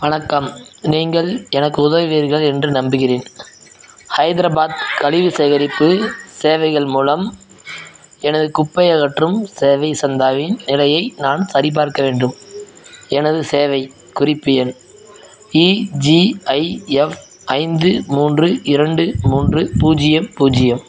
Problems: background sounds at intervals, background conversations at intervals